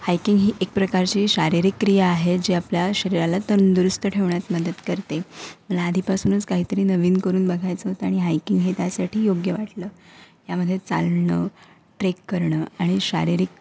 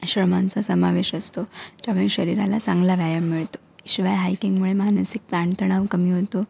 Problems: none marked